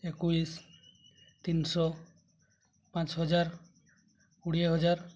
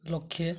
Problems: low volume